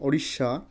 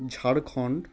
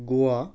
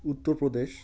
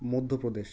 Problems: none marked